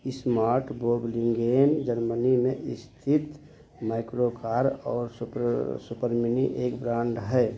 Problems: none marked